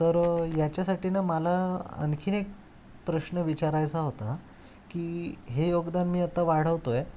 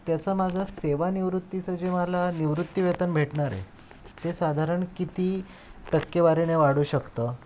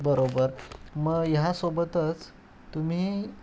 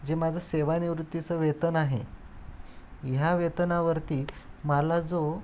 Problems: constant background noise